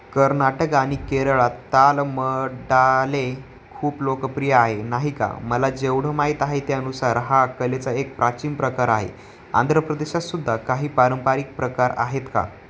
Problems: none marked